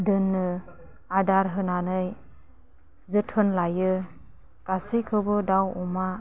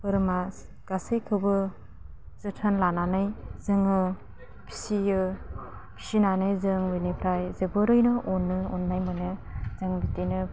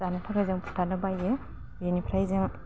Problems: low volume